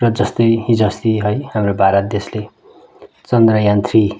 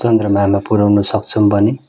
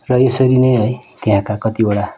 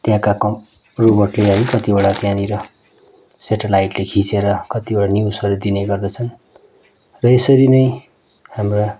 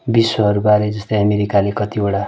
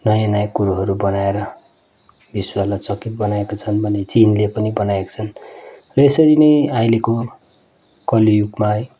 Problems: background sounds at intervals